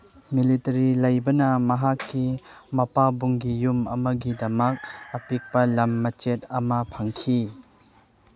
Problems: background sounds at intervals